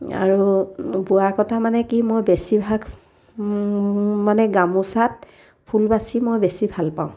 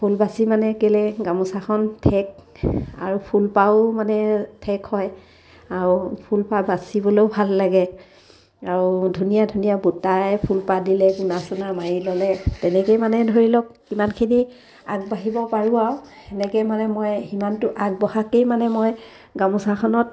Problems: none marked